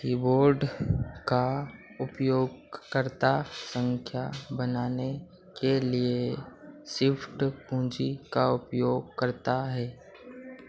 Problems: none marked